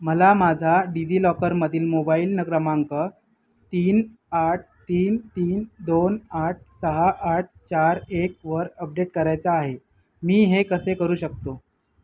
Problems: none marked